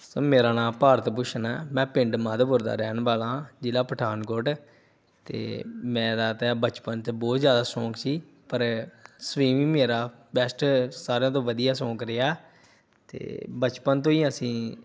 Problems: none marked